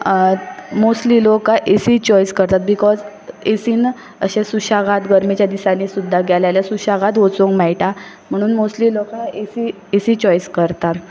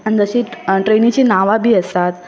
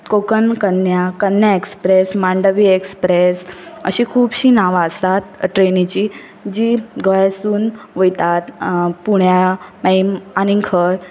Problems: none marked